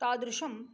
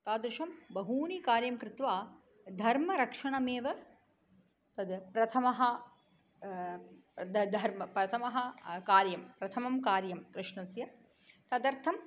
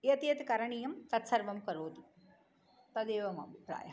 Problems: none marked